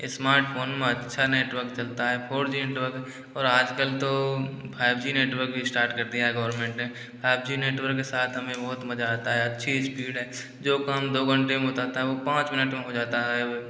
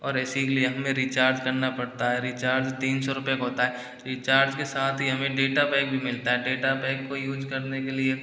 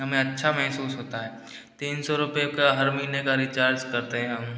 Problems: background sounds at intervals